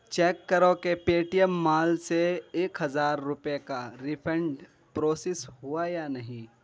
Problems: background conversations at intervals